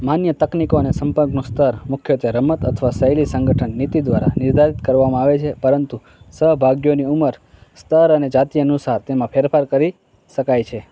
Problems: background sounds at intervals, background conversations at intervals